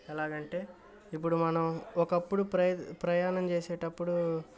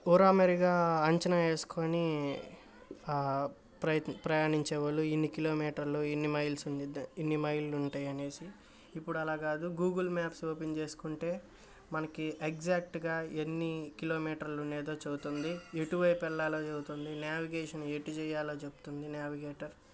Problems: background sounds at intervals